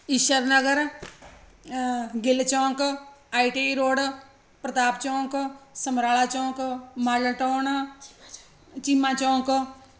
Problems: constant background noise